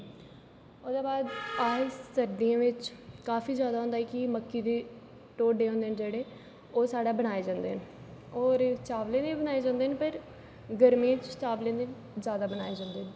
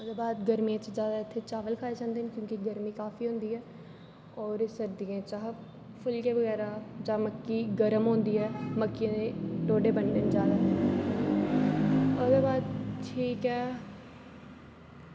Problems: constant background noise, echo